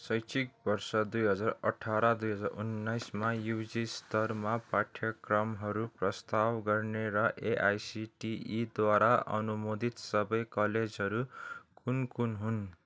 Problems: none marked